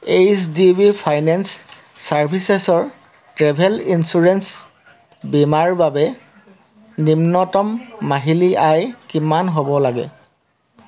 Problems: none marked